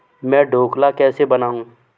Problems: background sounds at intervals